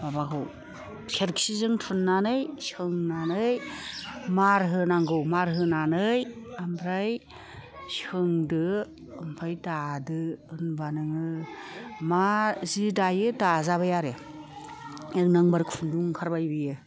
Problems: constant background noise, low volume